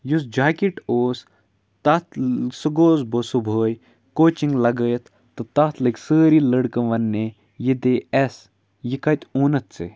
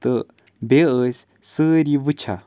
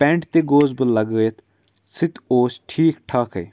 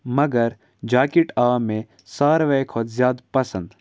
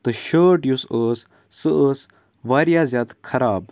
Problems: background sounds at intervals